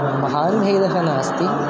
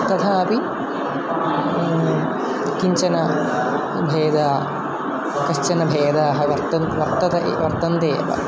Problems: constant background noise